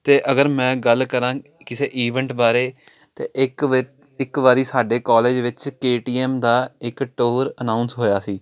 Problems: constant background noise